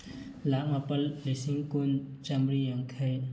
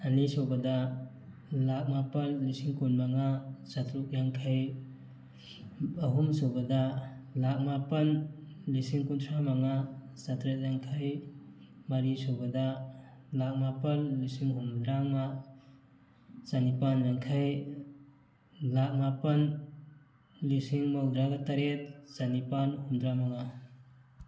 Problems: constant background noise